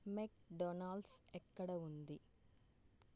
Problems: low volume